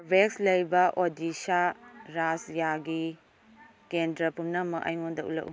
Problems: none marked